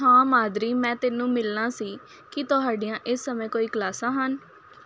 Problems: constant background noise